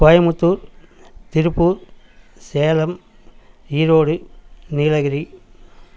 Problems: none marked